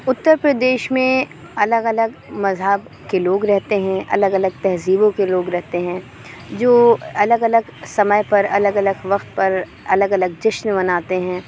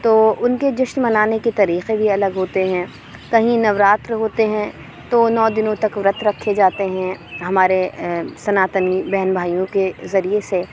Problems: constant background noise